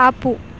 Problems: constant background noise